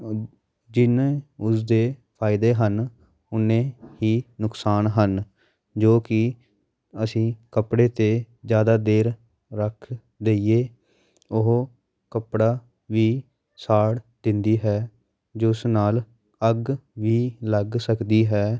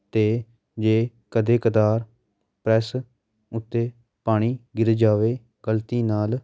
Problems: background sounds at intervals